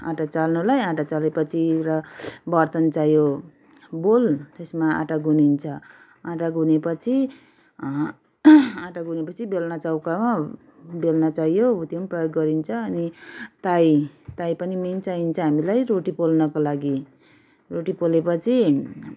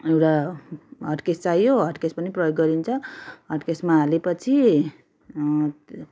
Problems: background conversations at intervals